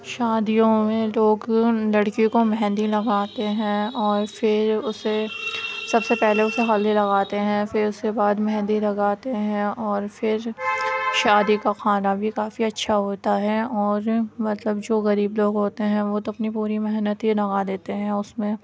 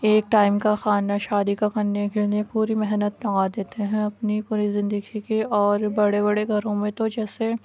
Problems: none marked